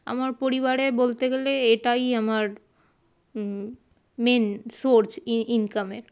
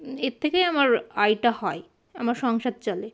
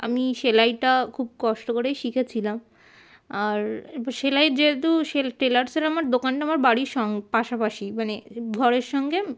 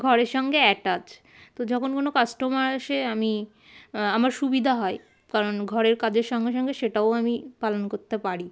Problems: constant background noise, background conversations at intervals